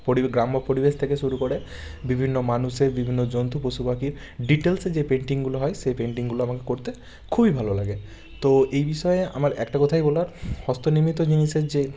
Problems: constant background noise